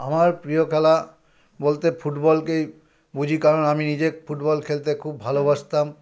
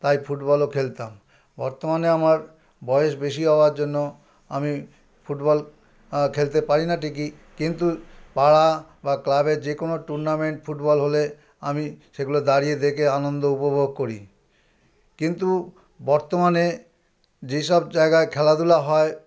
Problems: none marked